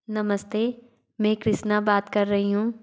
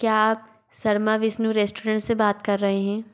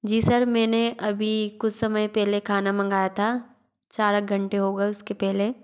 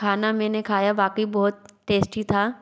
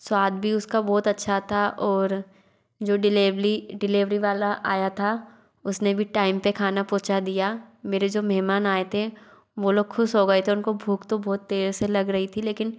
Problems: none marked